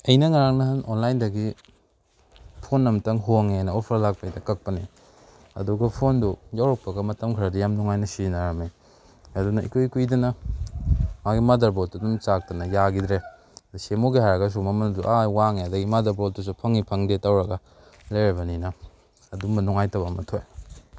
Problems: background sounds at intervals